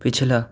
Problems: none marked